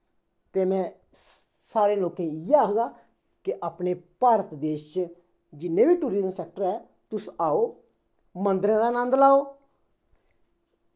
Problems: echo